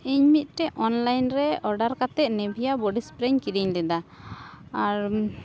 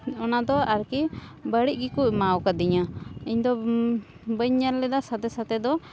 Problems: constant background noise